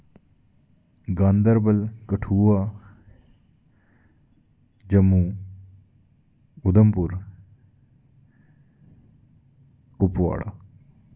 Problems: background sounds at intervals